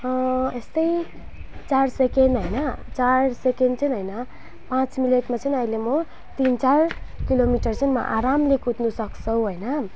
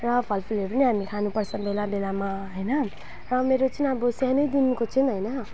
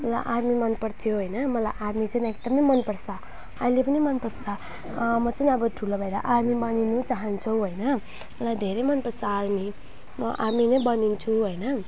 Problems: background sounds at intervals